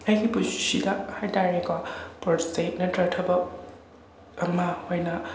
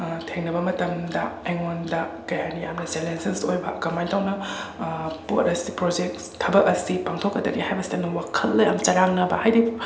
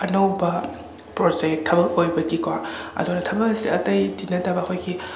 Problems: constant background noise